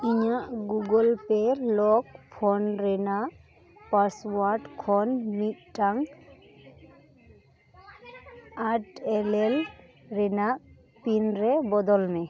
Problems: continuous background conversations